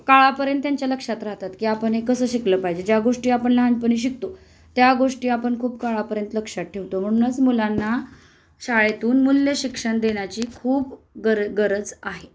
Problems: constant background noise